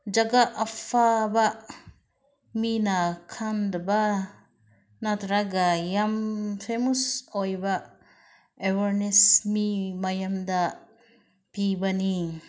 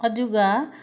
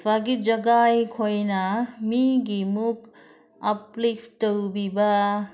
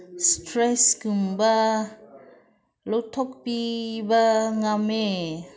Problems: background conversations at intervals